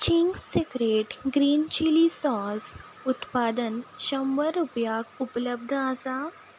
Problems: background sounds at intervals